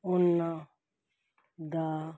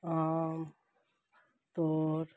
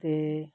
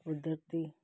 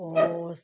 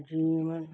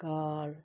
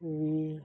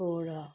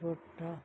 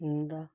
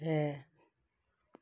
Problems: none marked